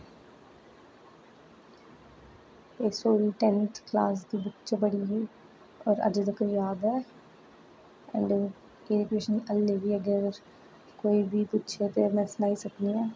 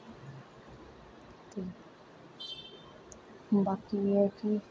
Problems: none marked